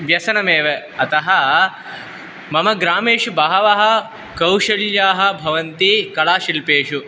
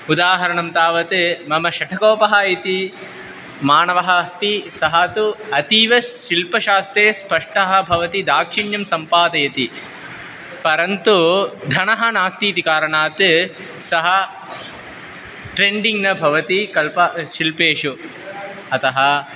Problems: constant background noise